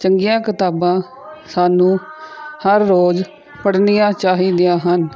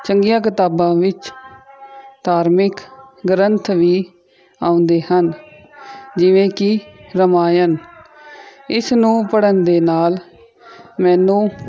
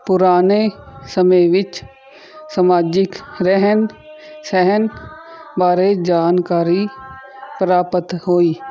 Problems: continuous background conversations